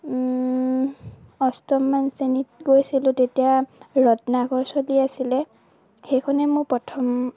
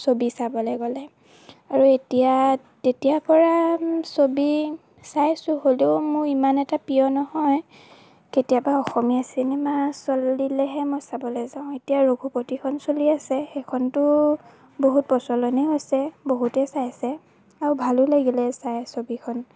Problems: none marked